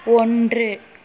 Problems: constant background noise